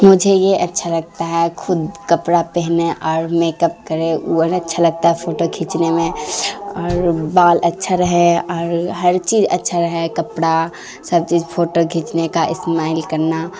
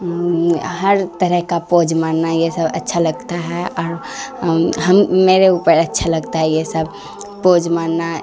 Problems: constant background noise